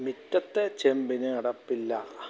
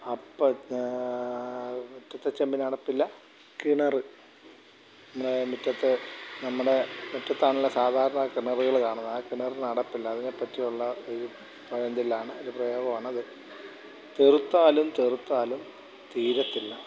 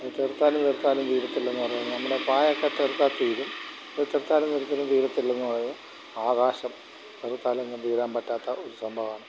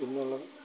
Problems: constant background noise, background conversations at intervals